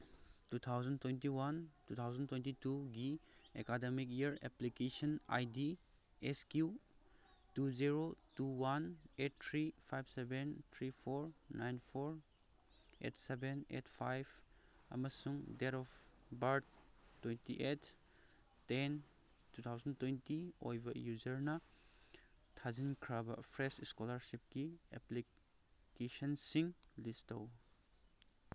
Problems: none marked